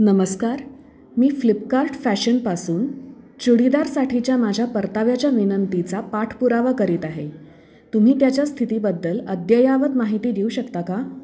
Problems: constant background noise, background conversations at intervals